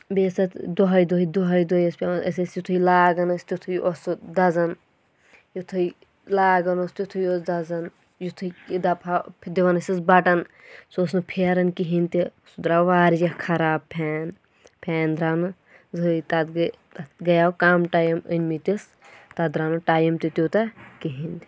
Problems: none marked